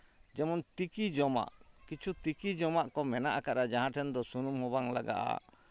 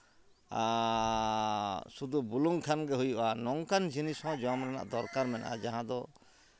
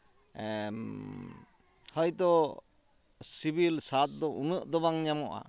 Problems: constant background noise, background conversations at intervals